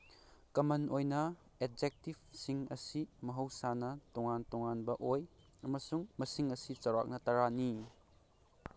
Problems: none marked